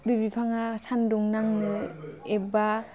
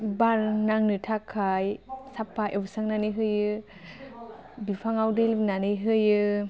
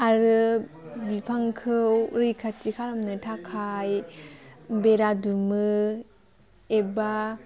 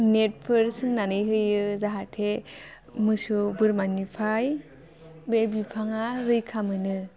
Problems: none marked